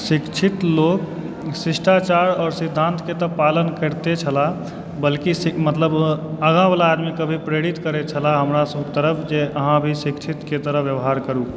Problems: background sounds at intervals